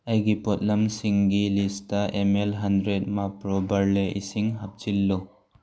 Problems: none marked